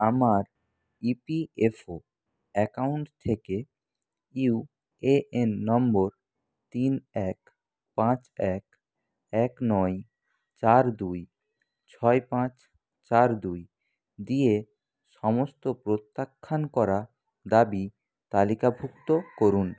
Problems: none marked